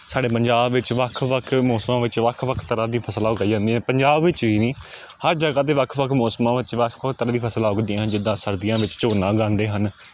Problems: background sounds at intervals